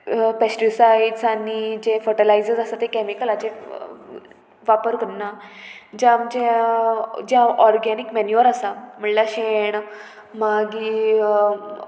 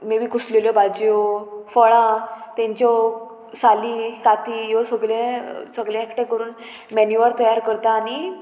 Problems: constant background noise